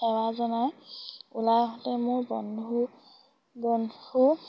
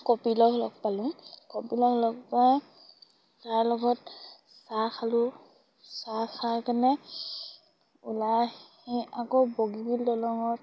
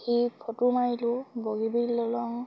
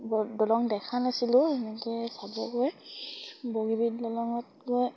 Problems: none marked